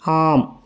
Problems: none marked